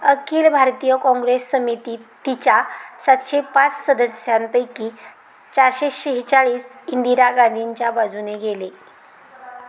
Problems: none marked